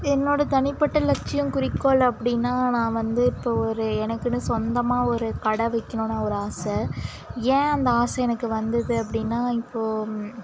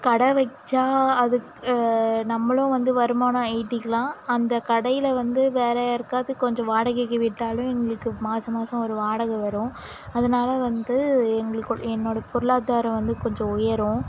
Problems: constant background noise